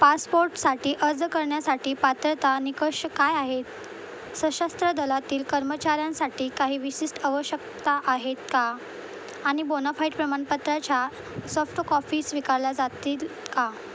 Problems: constant background noise